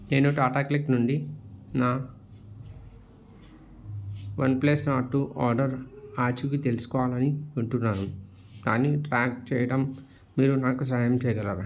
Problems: none marked